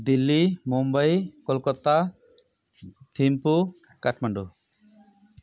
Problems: background conversations at intervals